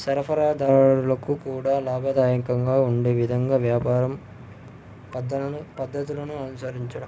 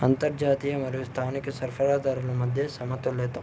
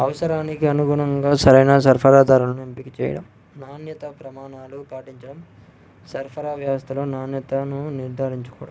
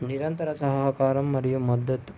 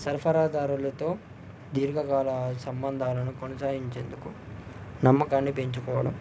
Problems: low volume